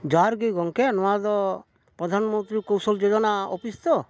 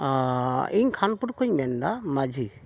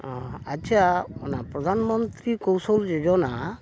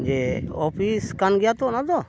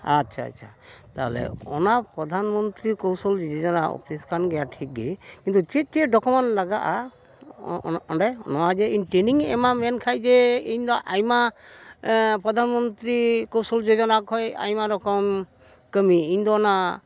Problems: none marked